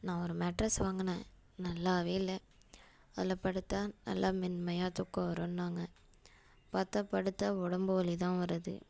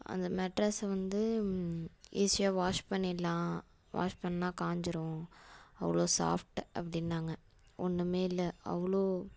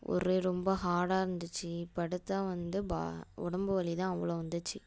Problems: constant background noise